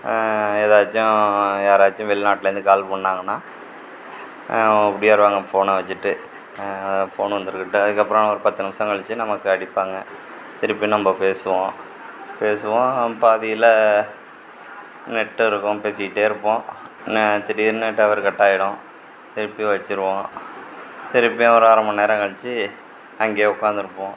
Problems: constant background noise